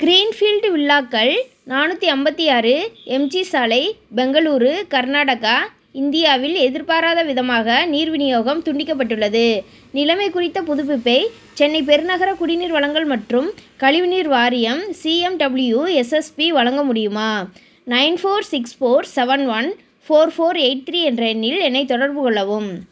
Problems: none marked